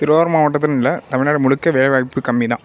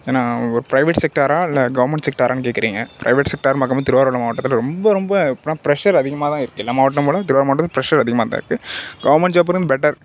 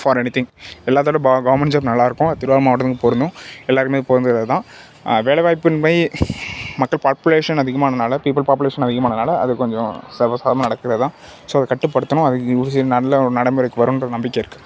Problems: background sounds at intervals